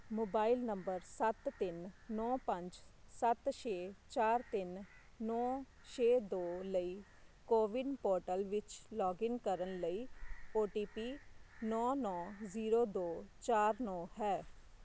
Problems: constant background noise